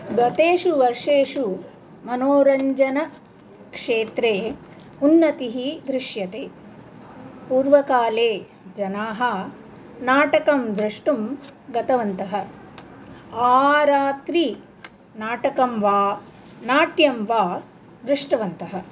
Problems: none marked